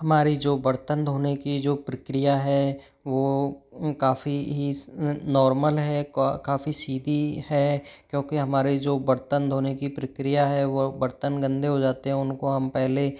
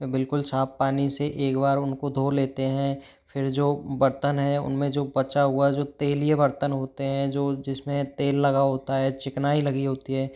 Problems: background sounds at intervals